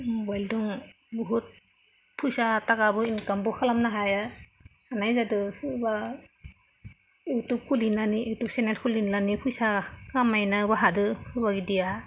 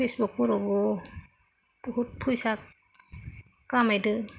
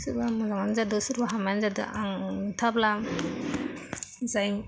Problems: constant background noise, low volume